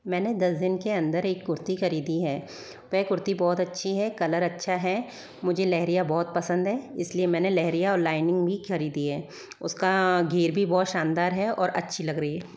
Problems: background sounds at intervals